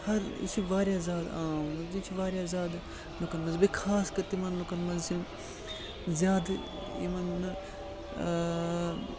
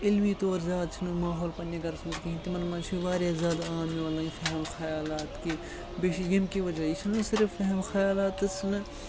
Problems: constant background noise